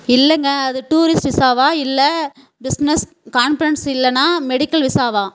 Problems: background sounds at intervals